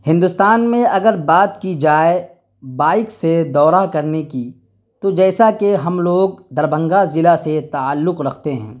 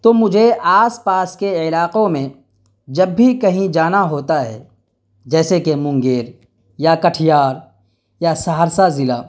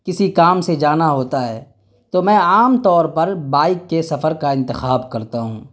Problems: none marked